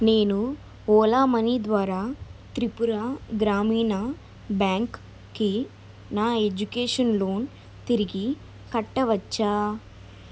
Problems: none marked